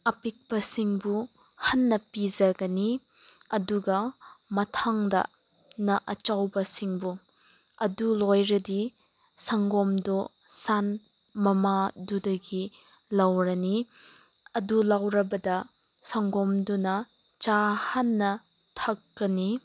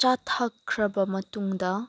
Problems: background sounds at intervals